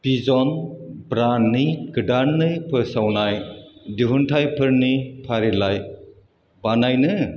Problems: none marked